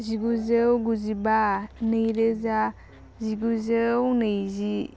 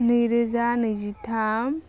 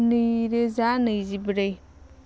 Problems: none marked